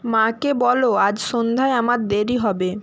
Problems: none marked